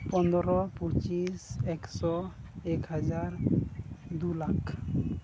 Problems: constant background noise, low volume